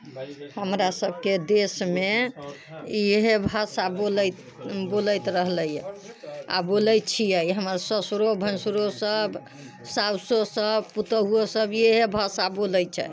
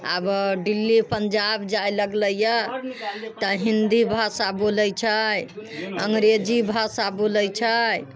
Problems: background sounds at intervals